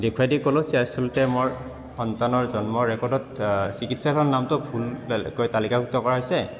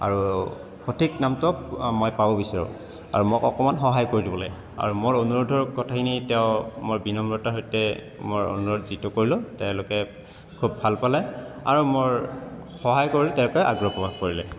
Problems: constant background noise, continuous background conversations